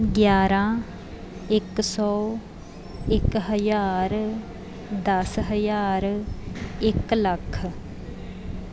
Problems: background sounds at intervals